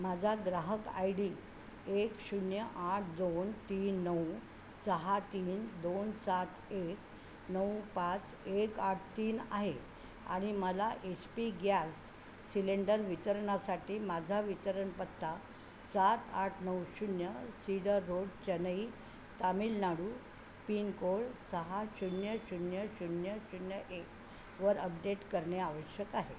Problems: constant background noise